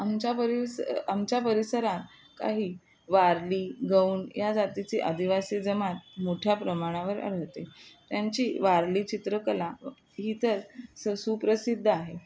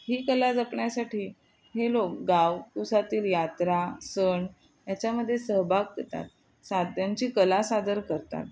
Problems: none marked